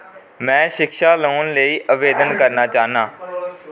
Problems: constant background noise